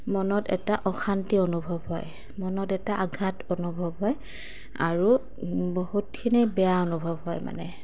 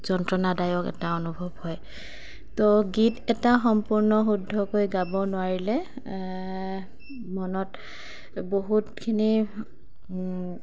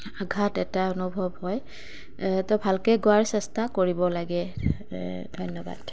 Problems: none marked